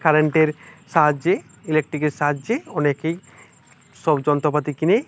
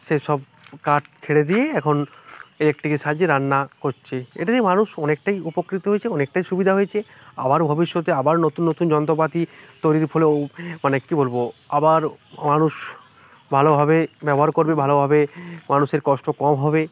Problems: none marked